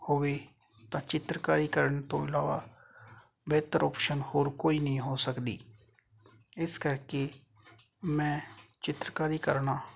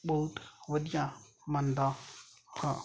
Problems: none marked